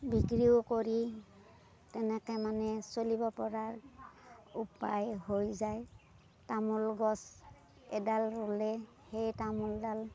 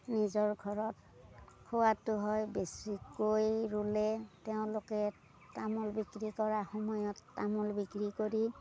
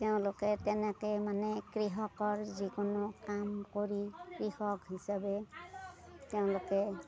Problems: none marked